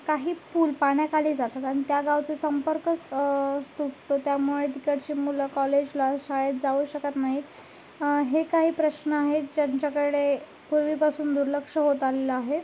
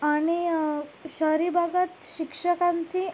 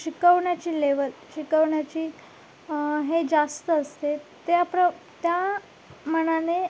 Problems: none marked